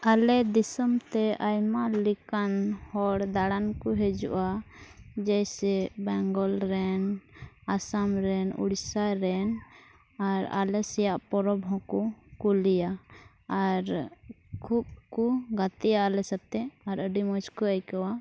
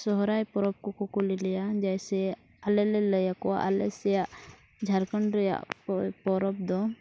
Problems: constant background noise, low volume